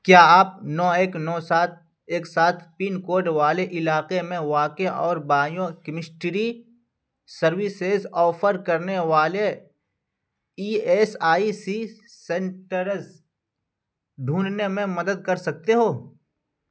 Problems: none marked